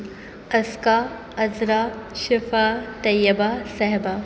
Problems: constant background noise